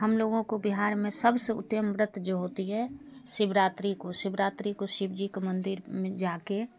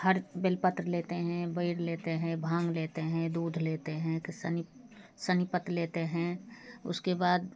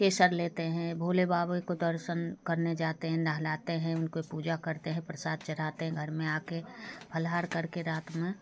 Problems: constant background noise, background conversations at intervals